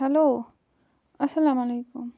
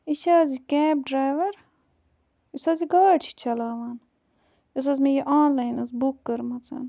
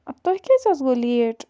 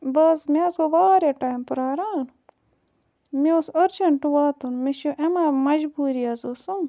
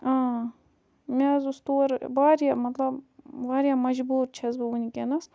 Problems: background sounds at intervals